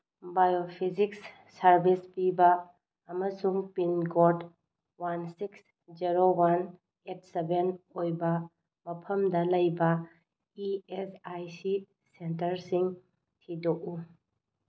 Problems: low volume